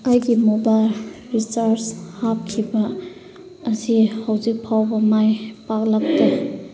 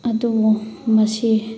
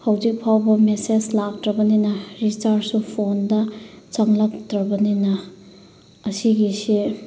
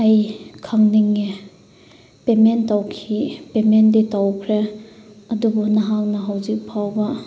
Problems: background sounds at intervals